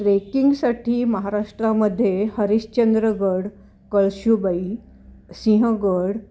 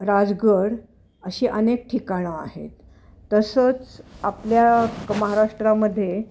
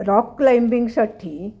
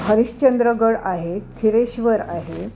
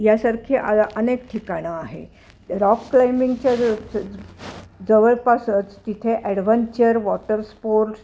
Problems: constant background noise